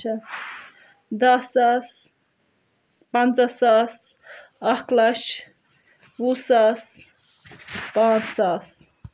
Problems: none marked